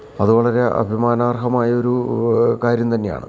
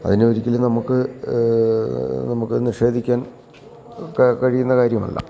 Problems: none marked